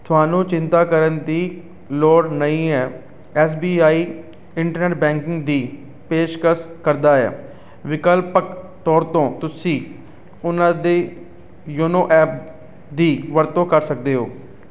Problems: none marked